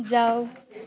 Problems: background sounds at intervals